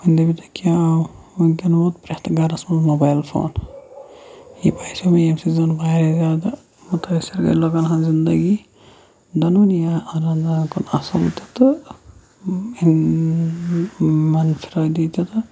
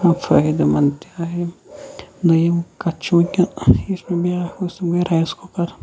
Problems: constant background noise, low volume